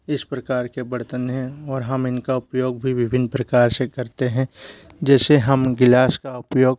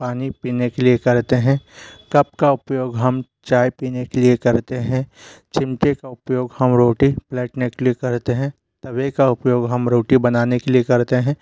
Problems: constant background noise